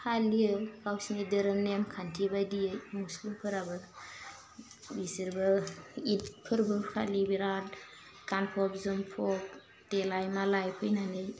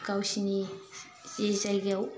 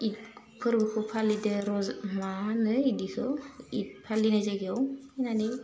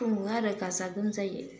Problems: constant background noise